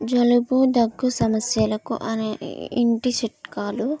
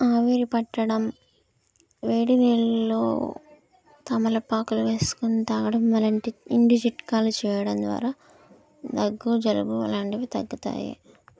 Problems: none marked